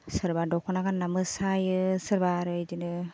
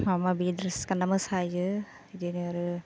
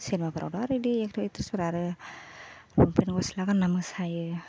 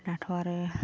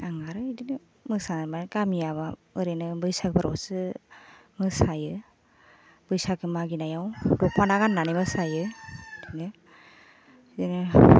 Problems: constant background noise